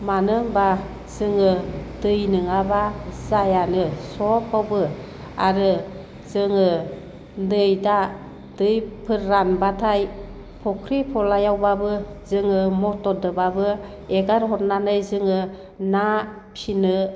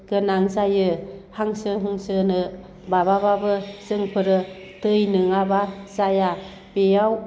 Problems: low volume